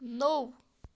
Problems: constant background noise